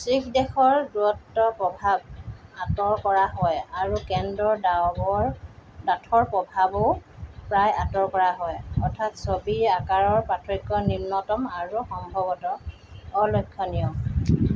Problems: background sounds at intervals